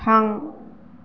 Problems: none marked